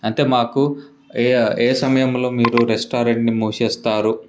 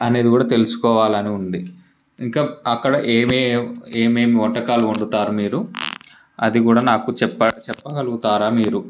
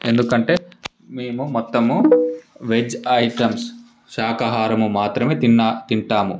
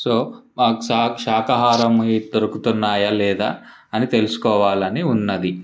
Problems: constant background noise